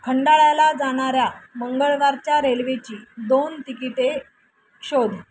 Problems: constant background noise